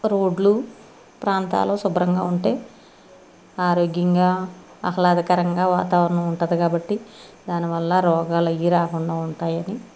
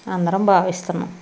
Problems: constant background noise